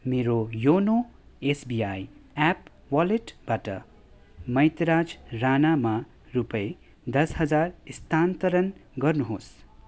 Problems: background sounds at intervals